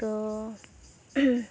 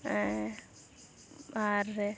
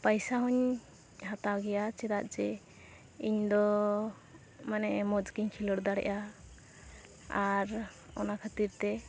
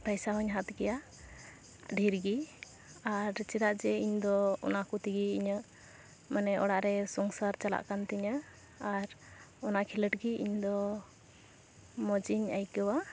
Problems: none marked